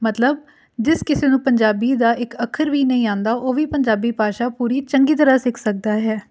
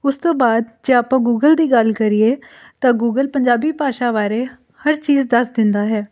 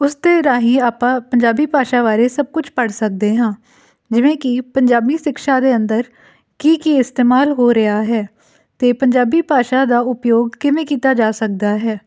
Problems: none marked